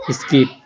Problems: background sounds at intervals